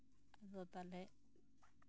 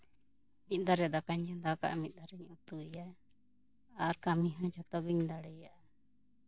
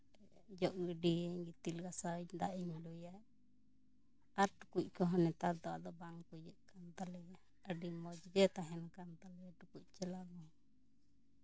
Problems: background conversations at intervals